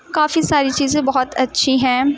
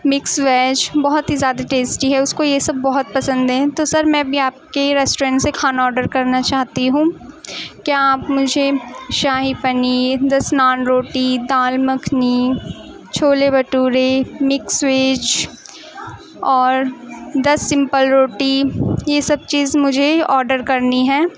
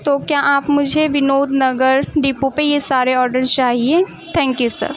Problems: constant background noise, continuous background conversations